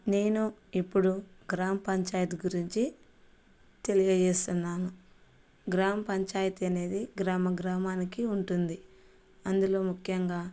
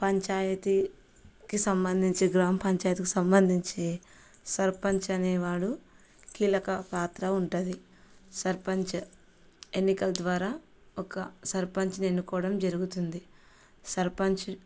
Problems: none marked